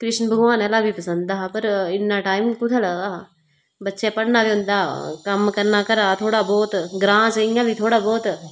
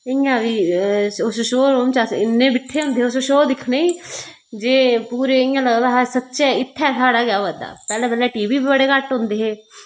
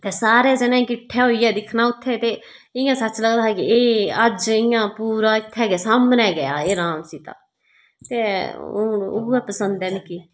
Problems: none marked